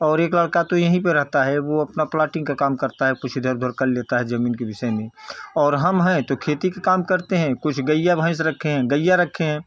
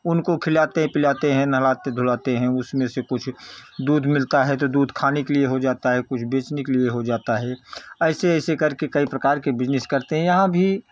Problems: constant background noise